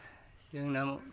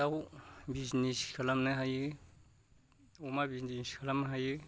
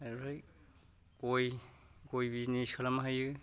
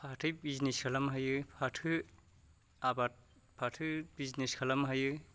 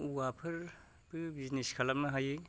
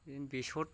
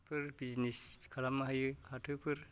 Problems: low volume